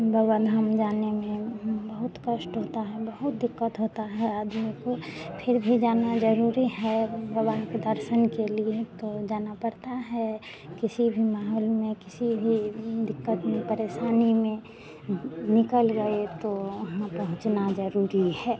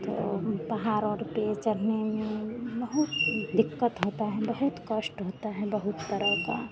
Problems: constant background noise, continuous background conversations, low volume